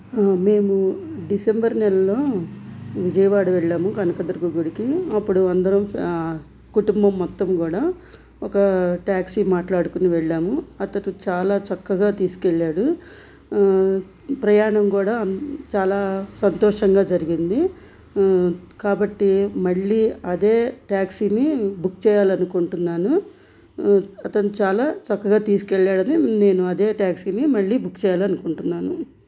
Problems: none marked